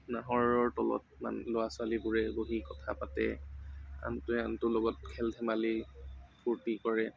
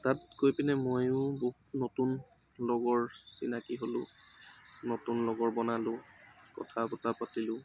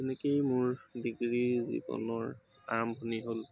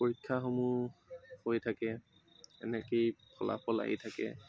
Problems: constant background noise, background conversations at intervals